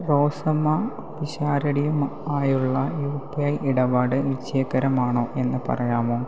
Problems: constant background noise